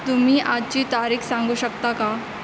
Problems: constant background noise